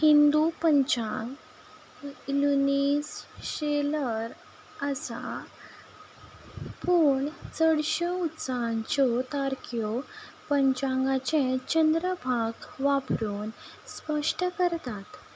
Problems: background sounds at intervals